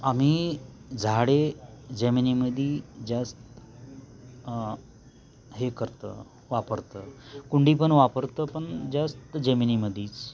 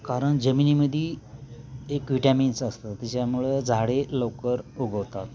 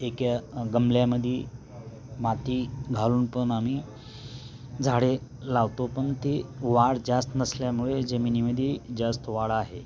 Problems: constant background noise